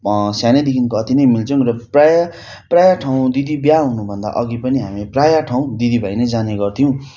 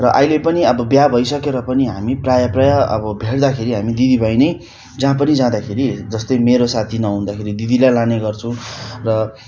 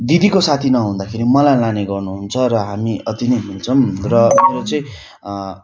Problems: constant background noise